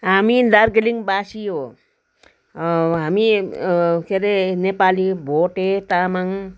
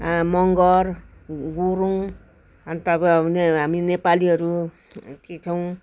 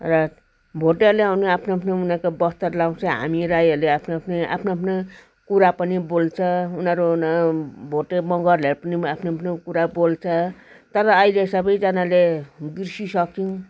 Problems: constant background noise